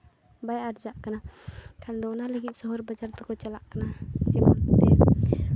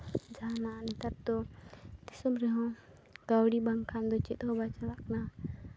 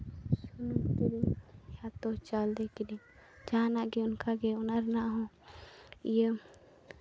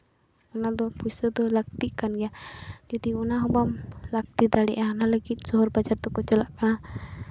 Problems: none marked